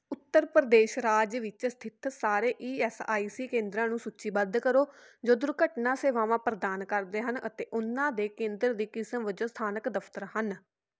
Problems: none marked